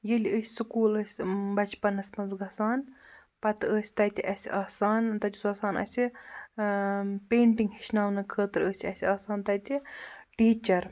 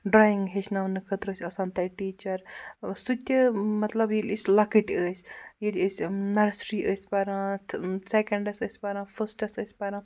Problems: none marked